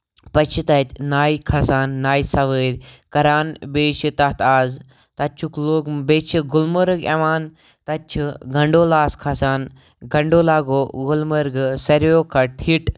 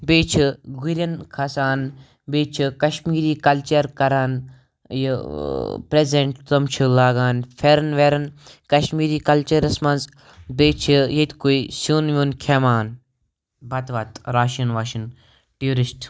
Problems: background conversations at intervals